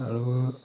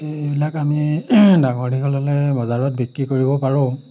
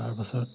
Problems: background sounds at intervals